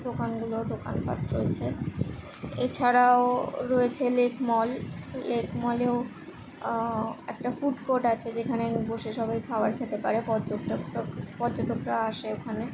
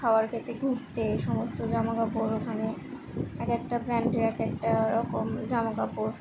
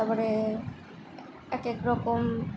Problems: constant background noise